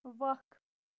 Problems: constant background noise